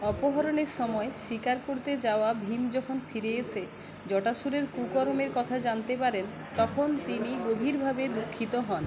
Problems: constant background noise, continuous background conversations